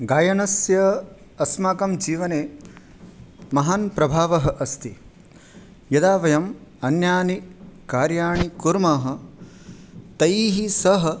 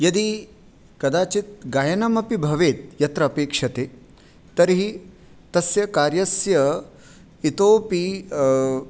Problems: none marked